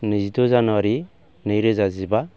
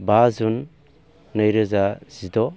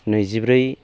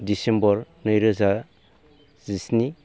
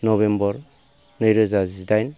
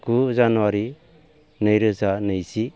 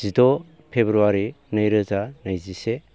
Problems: none marked